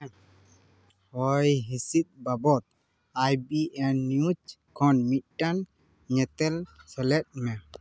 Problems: none marked